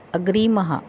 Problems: constant background noise